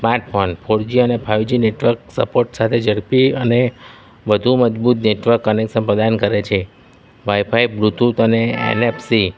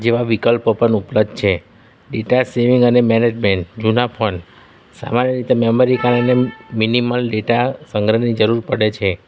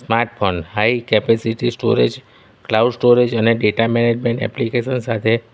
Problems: none marked